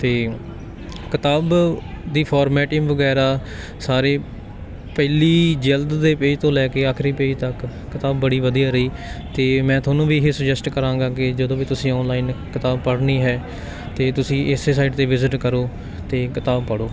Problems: background sounds at intervals